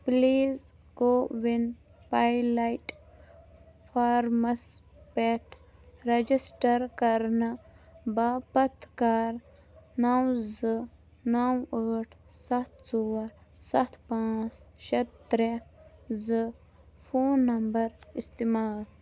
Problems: low volume